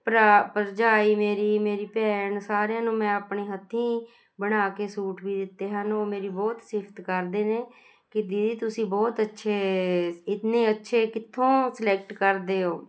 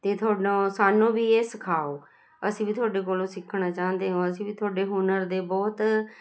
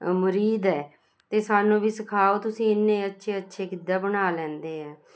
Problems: constant background noise